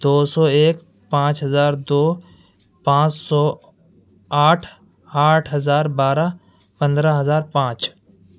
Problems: none marked